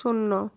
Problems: constant background noise